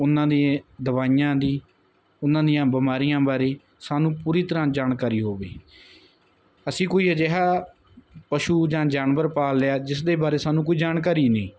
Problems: none marked